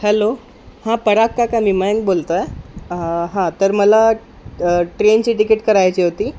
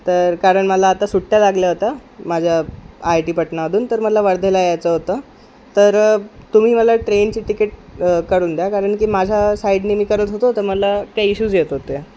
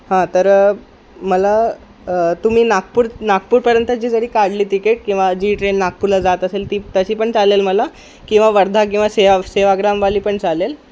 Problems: background sounds at intervals